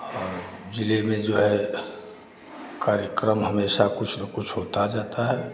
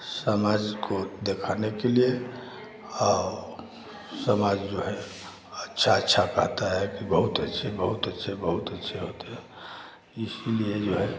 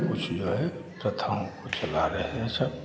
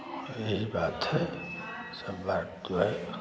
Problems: constant background noise, continuous background conversations